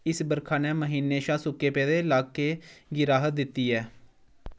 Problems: background sounds at intervals